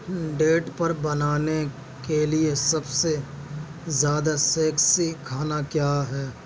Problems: constant background noise